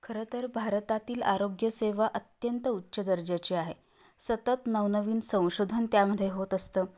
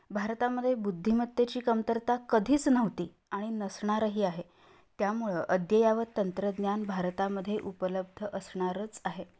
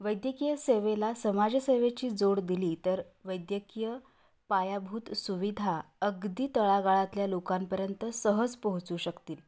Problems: background sounds at intervals